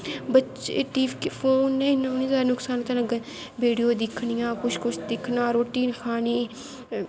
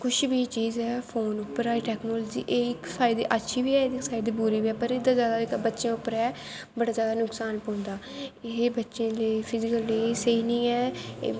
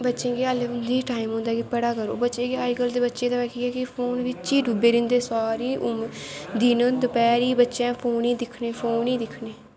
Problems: constant background noise